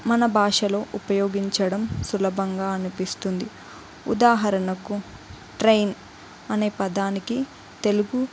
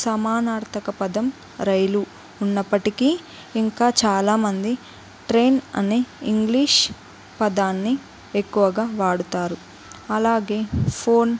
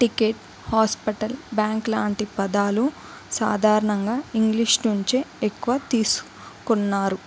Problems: constant background noise, background conversations at intervals